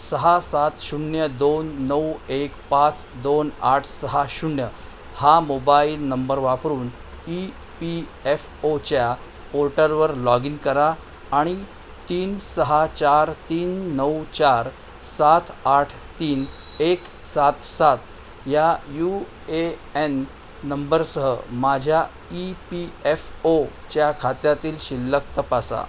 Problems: constant background noise